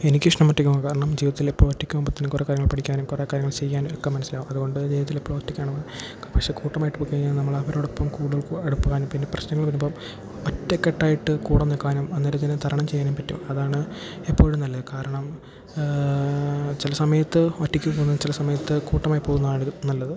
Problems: background sounds at intervals